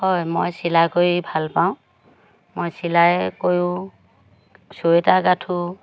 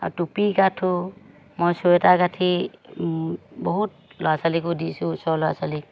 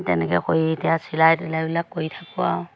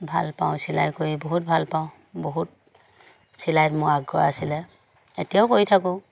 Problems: constant background noise